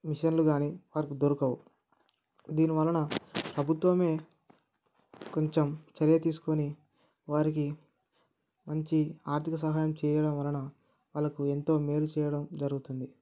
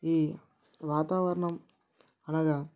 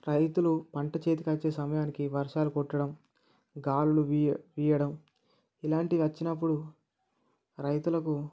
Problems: none marked